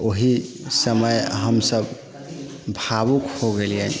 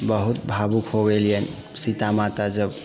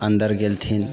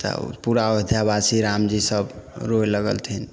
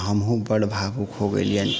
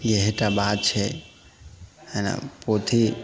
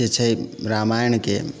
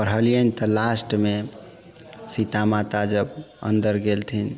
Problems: background sounds at intervals, background conversations at intervals